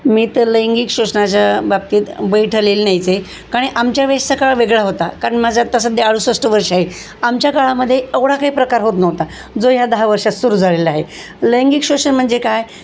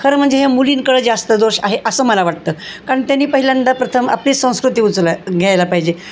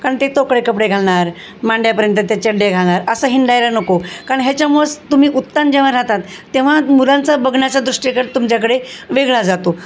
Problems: constant background noise